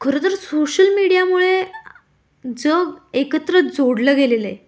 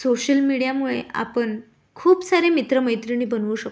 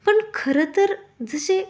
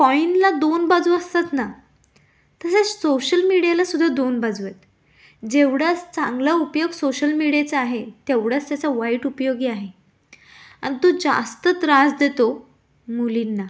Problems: none marked